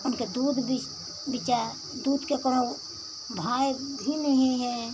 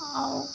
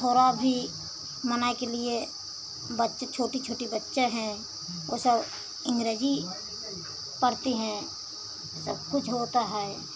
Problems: constant background noise